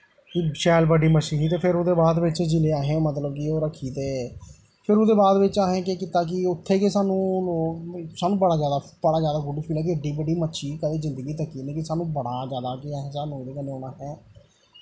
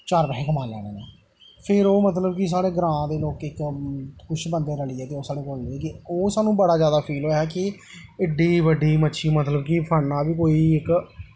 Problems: constant background noise